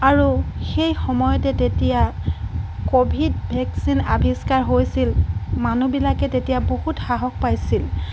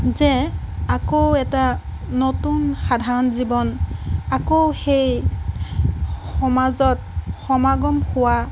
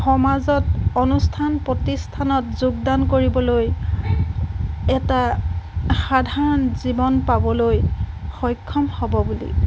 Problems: none marked